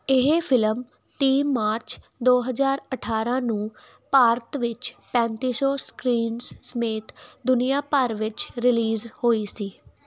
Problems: background sounds at intervals